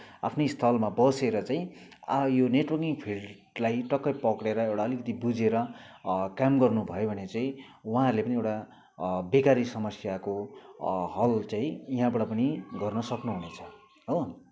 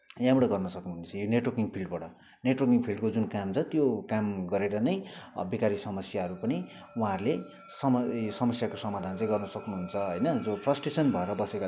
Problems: constant background noise